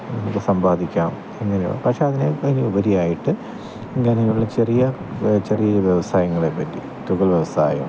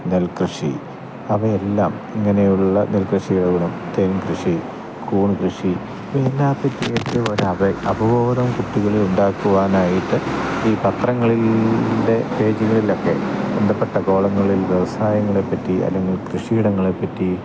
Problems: constant background noise